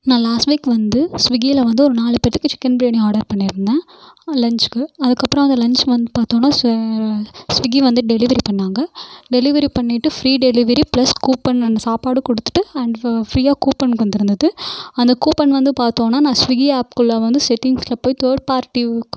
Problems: none marked